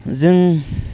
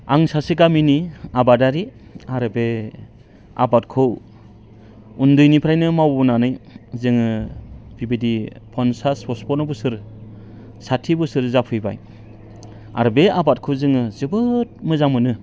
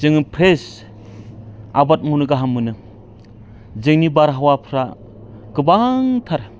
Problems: background conversations at intervals